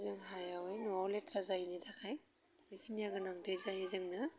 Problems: constant background noise